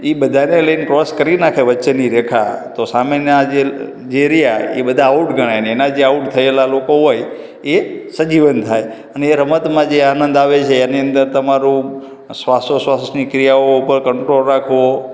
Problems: background sounds at intervals, echo